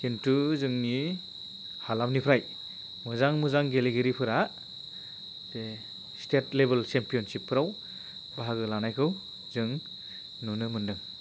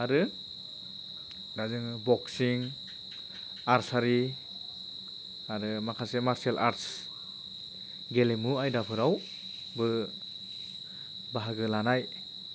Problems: constant background noise